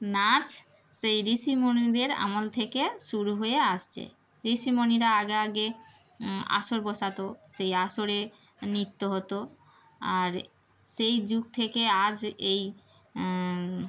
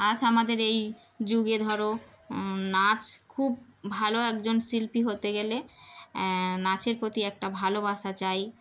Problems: background sounds at intervals